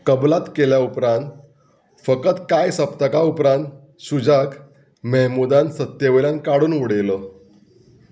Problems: none marked